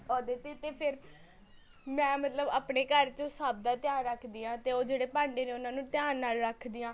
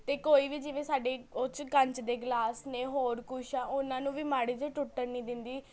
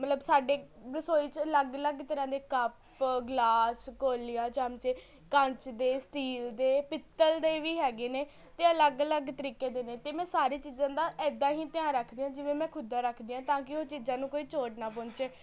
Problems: constant background noise, continuous background conversations